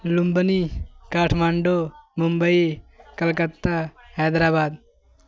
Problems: constant background noise